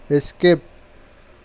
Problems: none marked